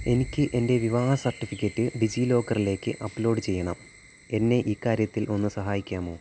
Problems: constant background noise